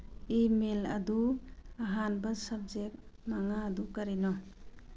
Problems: low volume